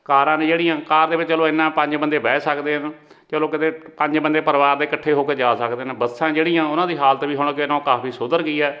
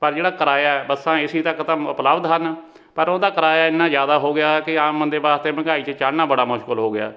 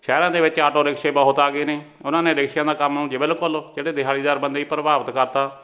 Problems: background sounds at intervals